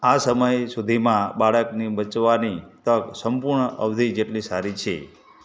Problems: background conversations at intervals